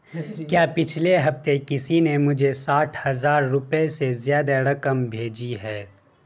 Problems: constant background noise